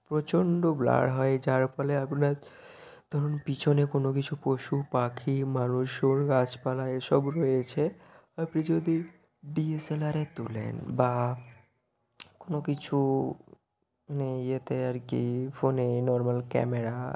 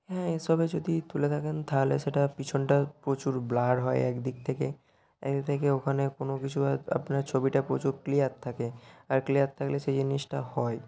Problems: constant background noise